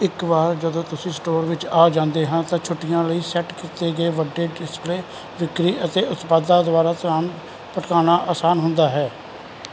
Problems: constant background noise